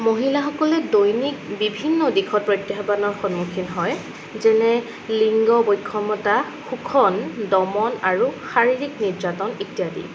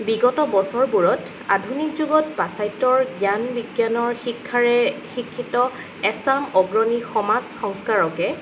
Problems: background sounds at intervals